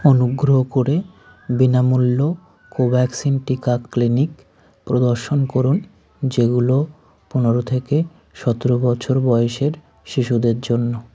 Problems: constant background noise